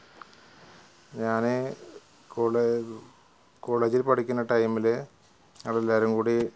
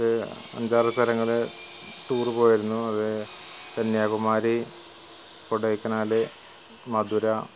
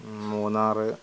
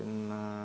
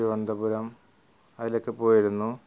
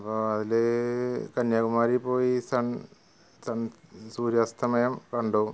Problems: background sounds at intervals, low volume